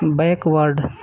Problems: background conversations at intervals